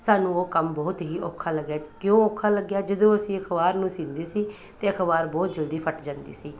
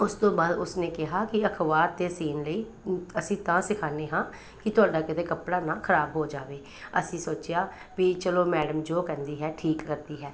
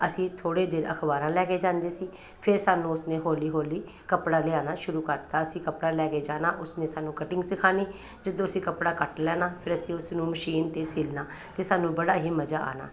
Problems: background conversations at intervals